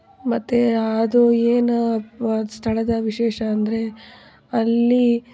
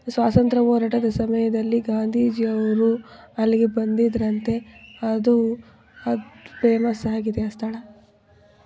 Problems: background sounds at intervals